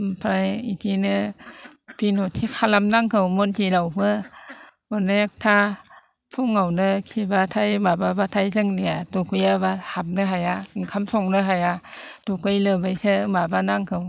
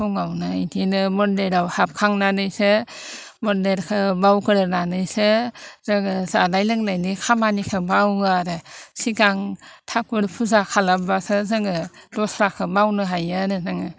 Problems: constant background noise